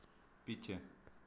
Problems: background sounds at intervals